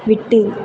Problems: none marked